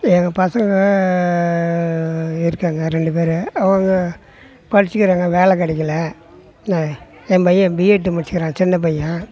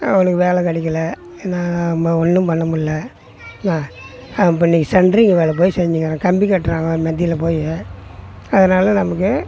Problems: none marked